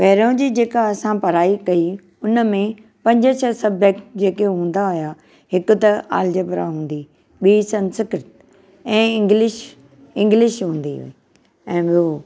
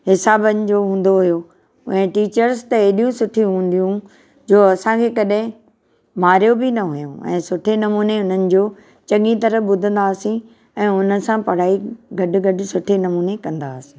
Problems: none marked